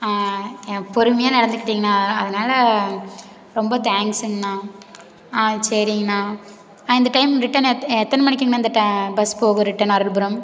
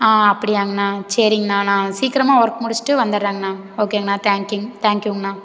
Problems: none marked